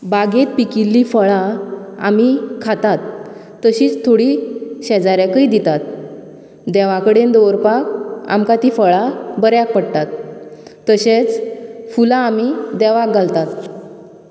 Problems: constant background noise